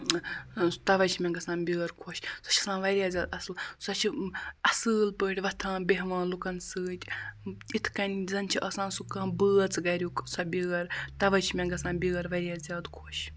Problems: constant background noise